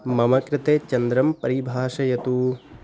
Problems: none marked